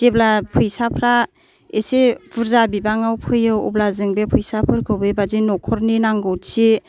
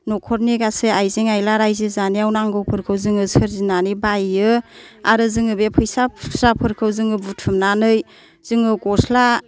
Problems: none marked